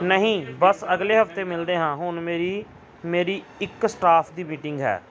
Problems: background sounds at intervals, background conversations at intervals